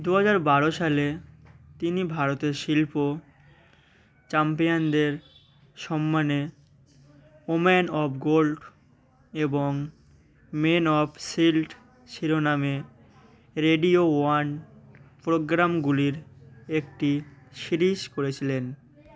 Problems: none marked